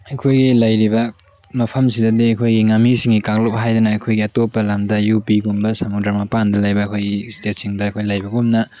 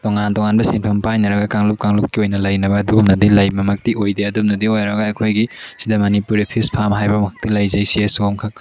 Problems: background sounds at intervals, background conversations at intervals